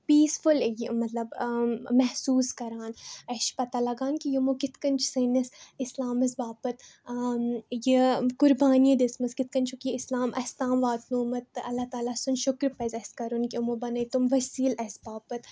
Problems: none marked